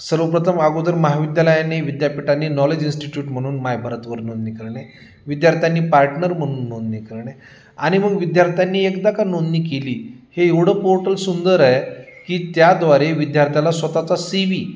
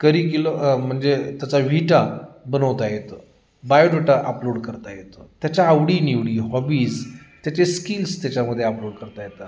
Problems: constant background noise, background conversations at intervals